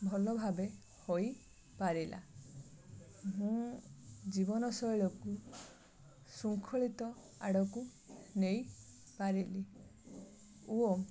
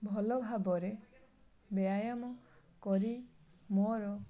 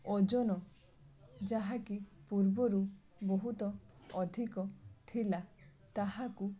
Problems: none marked